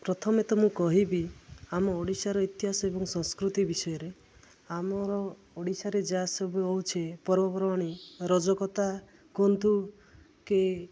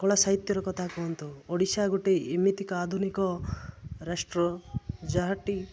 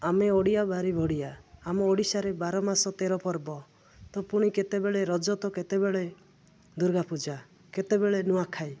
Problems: none marked